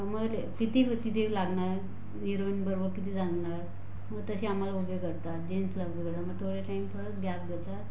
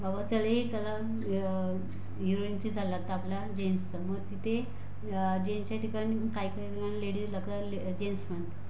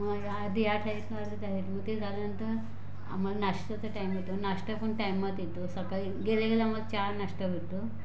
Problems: constant background noise